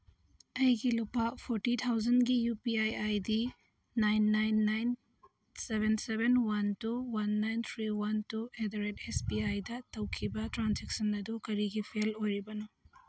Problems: none marked